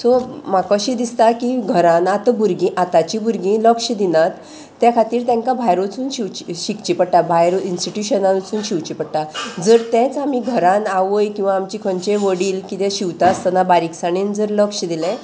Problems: none marked